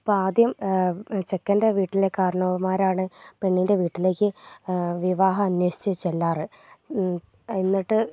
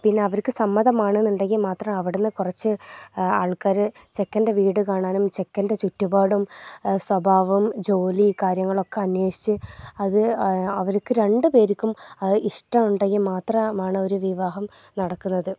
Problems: low volume